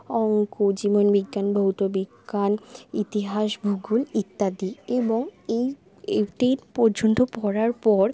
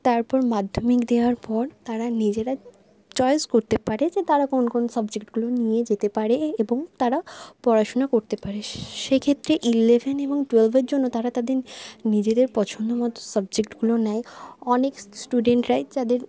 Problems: none marked